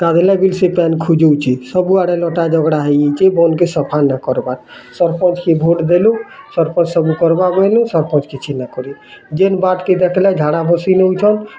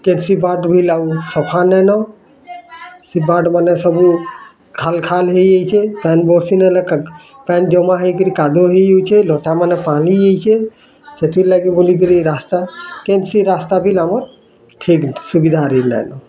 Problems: constant background noise, continuous background conversations